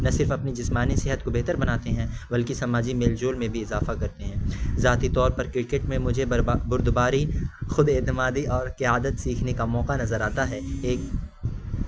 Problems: constant background noise